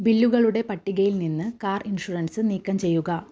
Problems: low volume